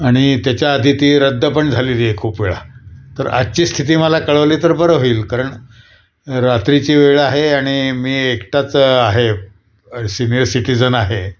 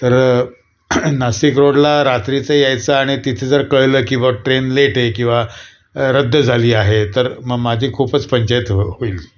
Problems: none marked